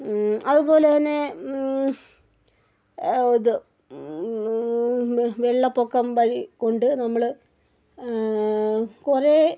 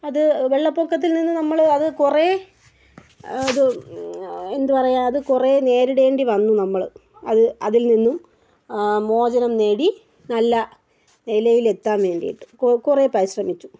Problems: none marked